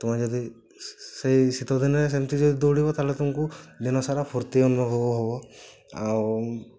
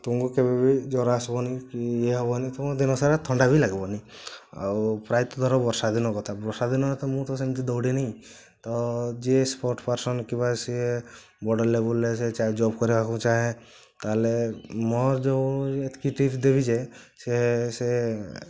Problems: constant background noise